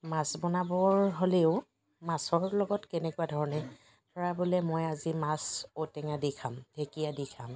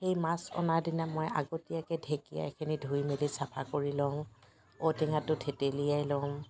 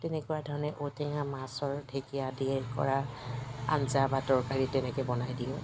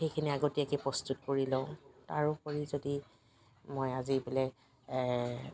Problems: constant background noise, background conversations at intervals